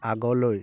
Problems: none marked